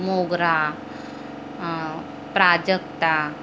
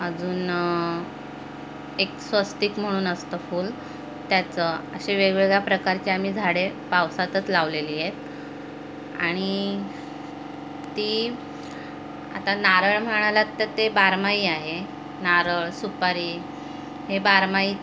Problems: constant background noise, background conversations at intervals